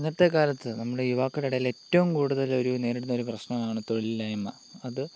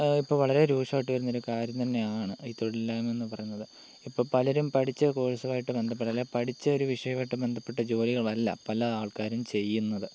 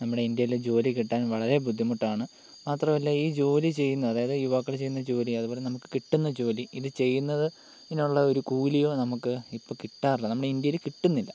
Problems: constant background noise, low volume